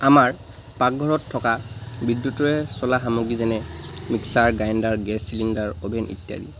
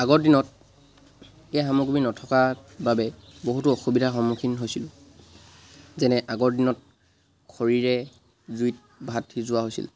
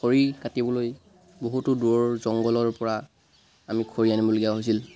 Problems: background sounds at intervals